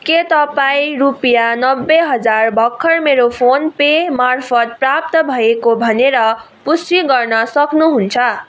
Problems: none marked